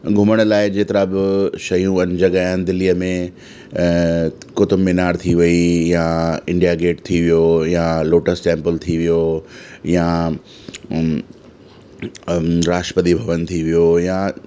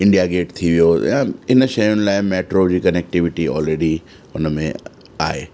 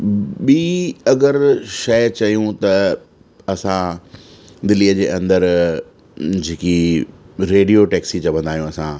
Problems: constant background noise, echo